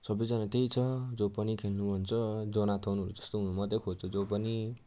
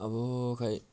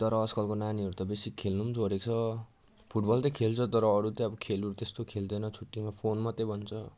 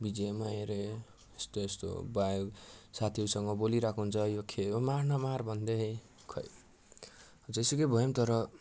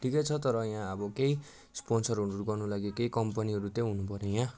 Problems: none marked